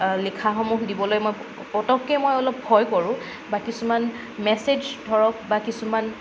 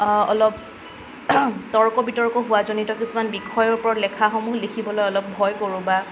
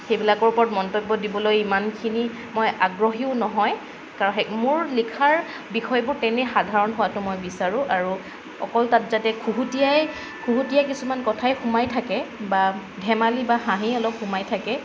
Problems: none marked